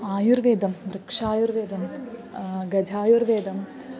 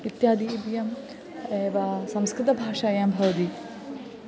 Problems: constant background noise, continuous background conversations